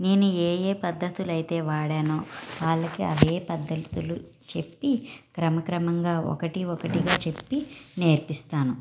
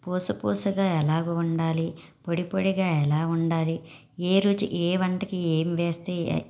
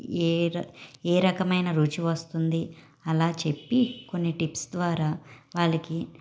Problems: background sounds at intervals